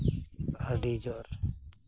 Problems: constant background noise